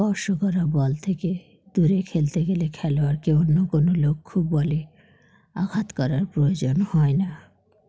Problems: background sounds at intervals